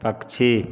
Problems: background conversations at intervals